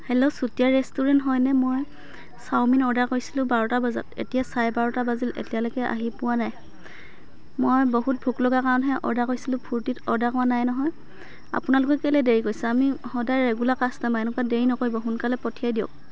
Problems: constant background noise